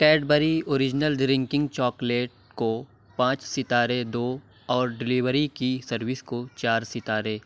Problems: none marked